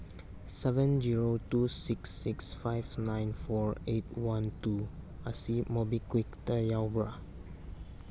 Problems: none marked